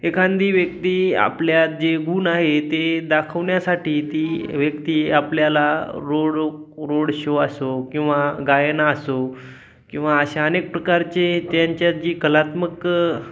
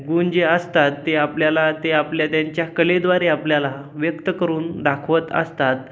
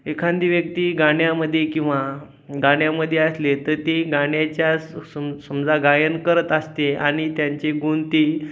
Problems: none marked